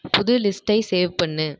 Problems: echo